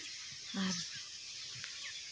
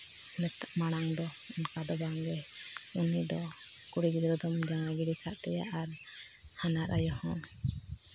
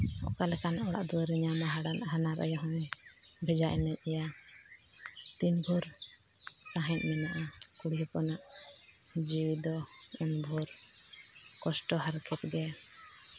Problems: constant background noise, low volume